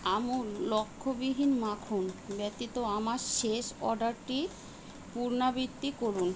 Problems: constant background noise